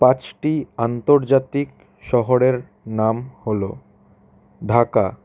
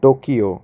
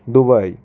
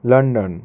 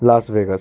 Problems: none marked